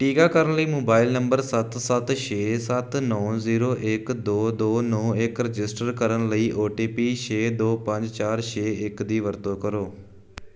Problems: background sounds at intervals